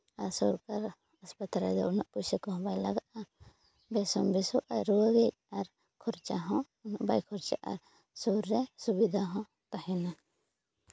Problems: none marked